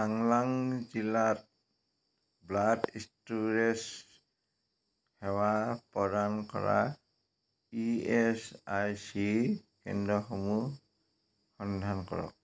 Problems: none marked